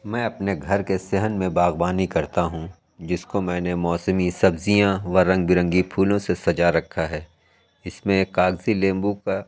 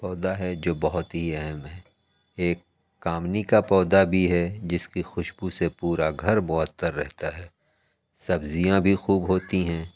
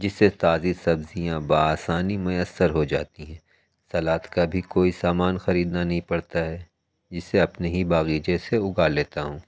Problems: none marked